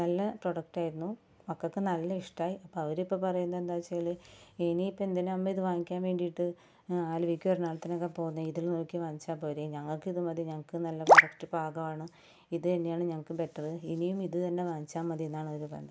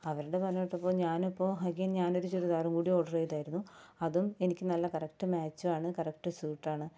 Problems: background sounds at intervals